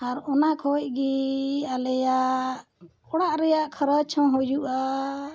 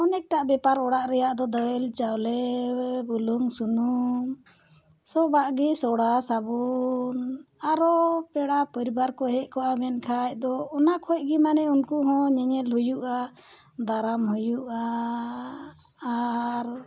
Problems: none marked